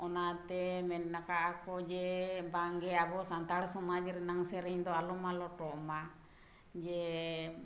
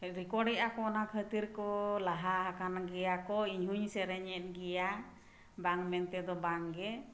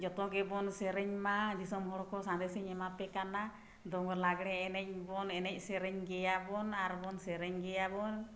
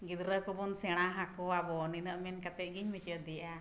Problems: none marked